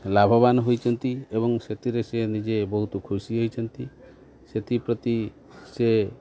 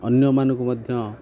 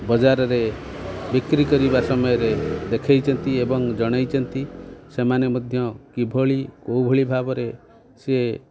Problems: background sounds at intervals, continuous background conversations